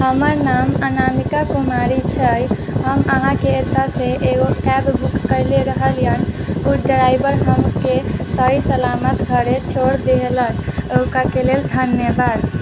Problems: constant background noise